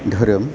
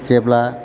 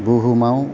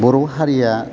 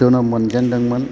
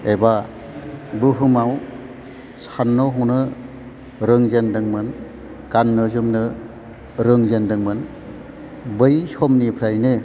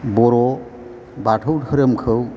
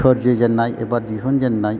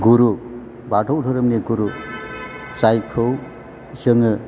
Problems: background sounds at intervals